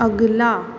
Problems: none marked